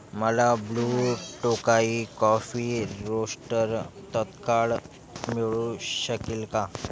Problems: constant background noise, continuous background conversations